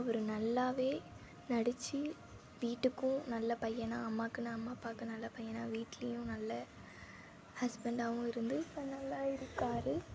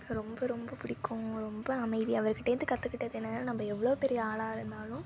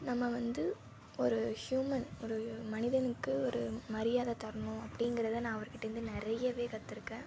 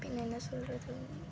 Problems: constant background noise